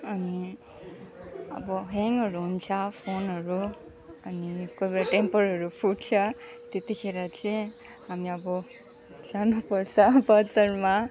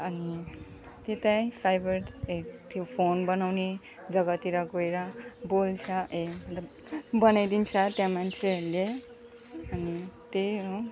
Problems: none marked